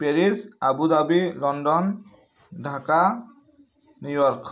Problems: none marked